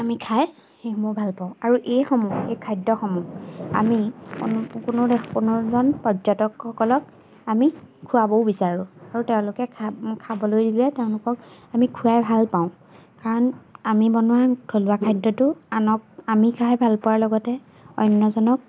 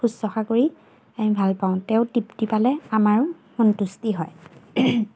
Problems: background sounds at intervals